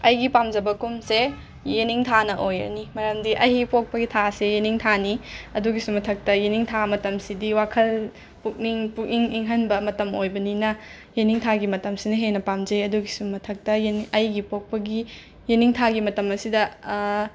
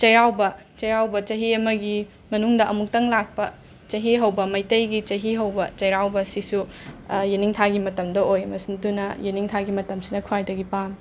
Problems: constant background noise